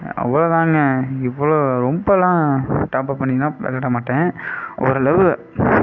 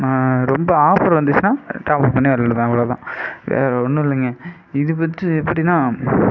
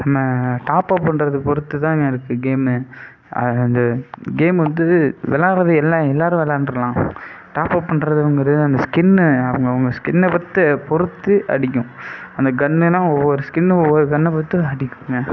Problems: constant background noise